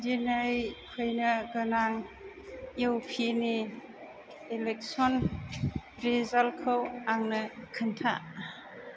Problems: none marked